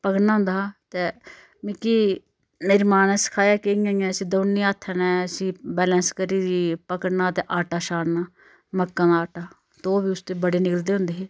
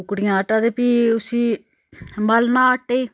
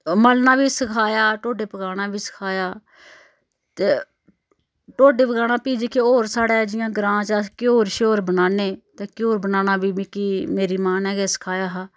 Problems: none marked